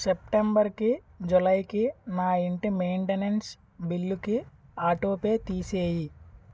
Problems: background sounds at intervals